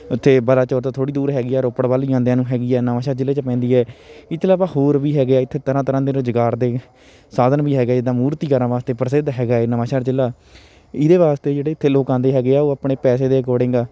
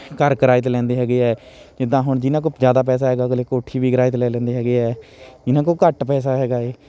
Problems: continuous background conversations